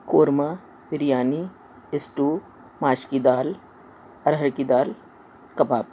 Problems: constant background noise